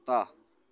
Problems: background conversations at intervals